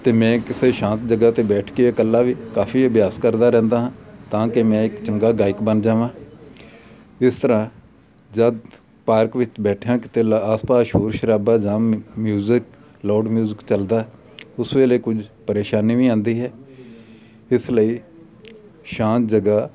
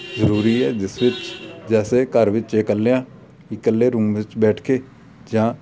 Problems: none marked